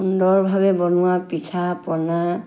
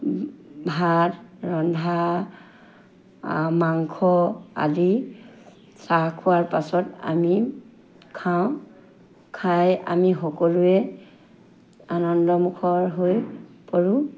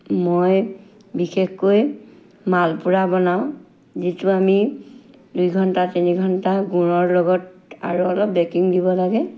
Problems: constant background noise